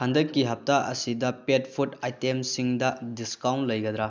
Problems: low volume